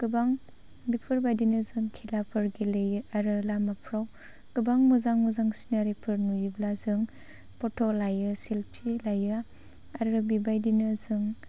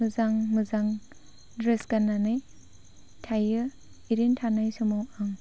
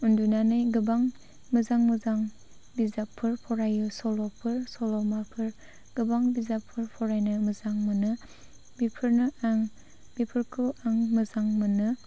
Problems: none marked